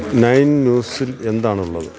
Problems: constant background noise